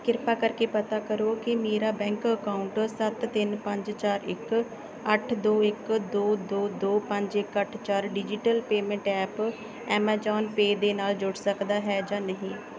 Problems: background conversations at intervals